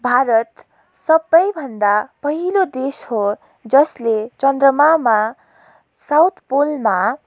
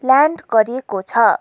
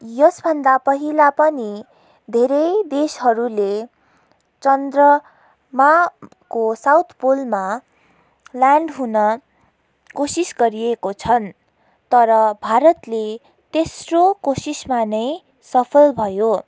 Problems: background sounds at intervals